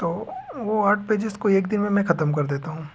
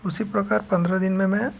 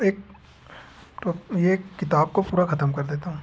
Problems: none marked